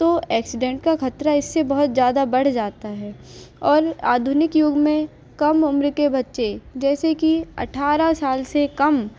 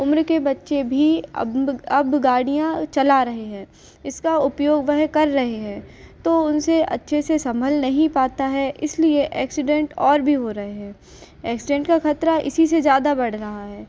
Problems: none marked